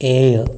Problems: constant background noise